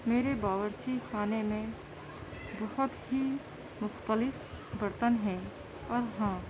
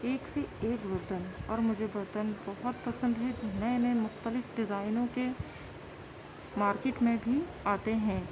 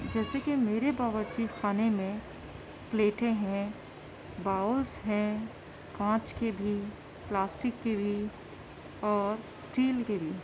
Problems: constant background noise, continuous background conversations, low volume